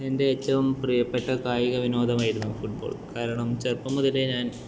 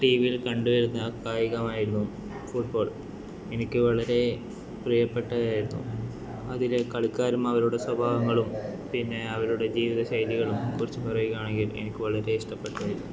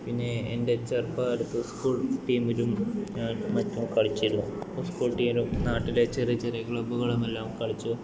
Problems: constant background noise